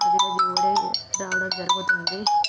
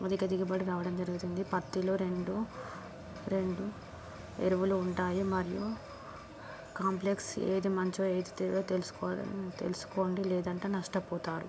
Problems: background sounds at intervals